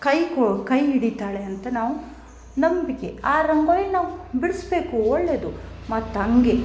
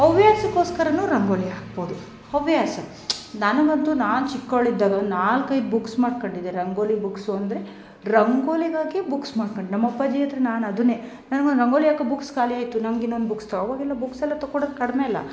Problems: background sounds at intervals, background conversations at intervals